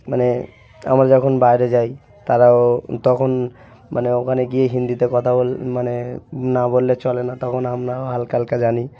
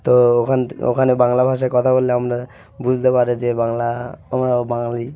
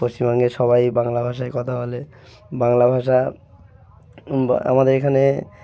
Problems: none marked